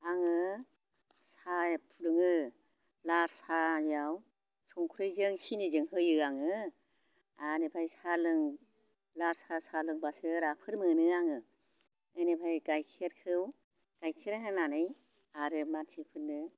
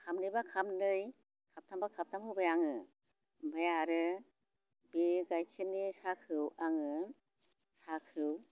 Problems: constant background noise